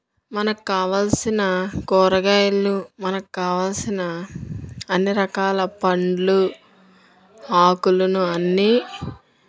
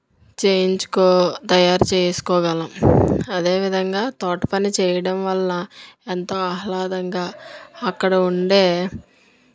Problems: background sounds at intervals